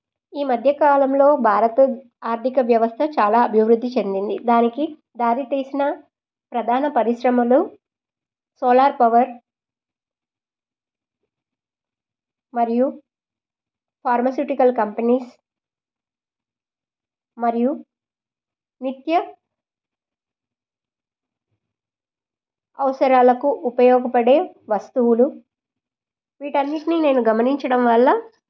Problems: none marked